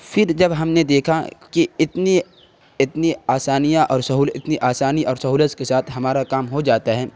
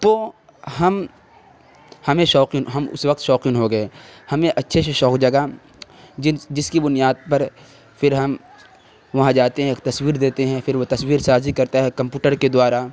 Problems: constant background noise